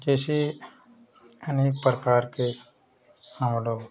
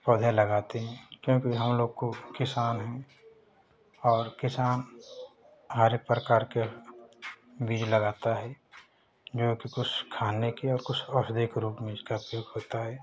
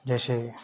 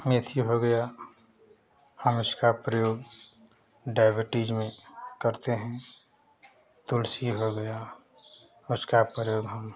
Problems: none marked